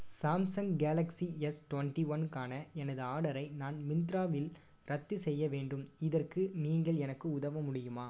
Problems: low volume